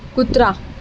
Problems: none marked